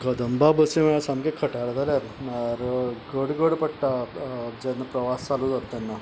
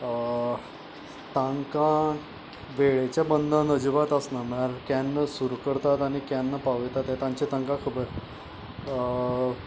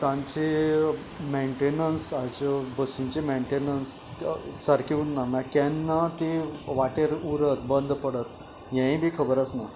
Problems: background sounds at intervals